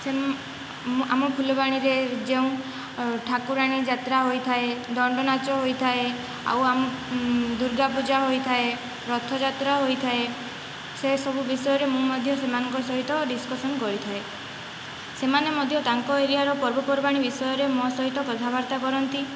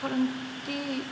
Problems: constant background noise, background conversations at intervals